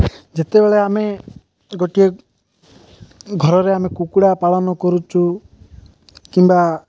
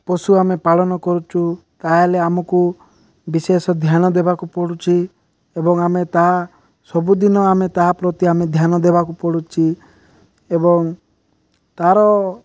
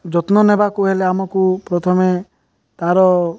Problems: none marked